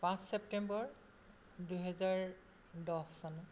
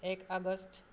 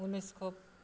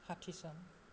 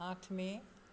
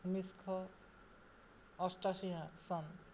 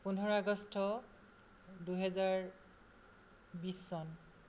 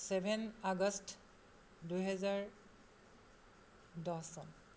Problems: none marked